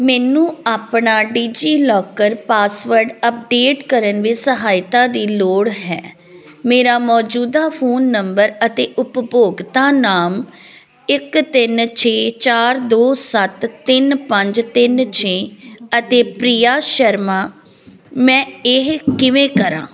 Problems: background sounds at intervals